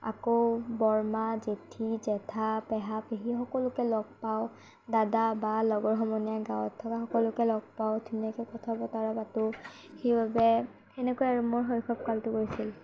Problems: background sounds at intervals, low volume